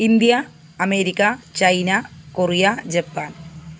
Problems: background sounds at intervals